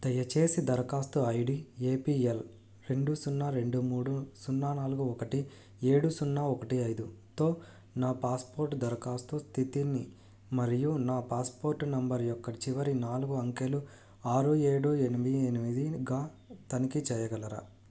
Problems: low volume